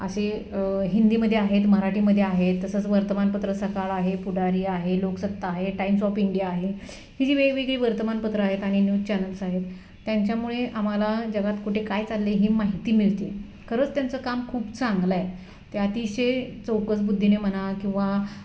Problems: constant background noise